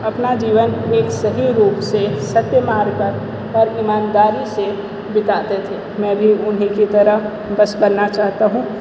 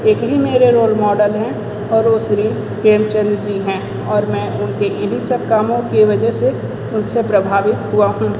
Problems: constant background noise